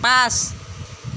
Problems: constant background noise